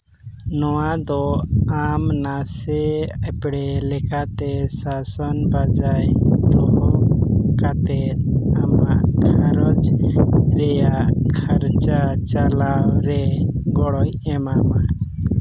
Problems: constant background noise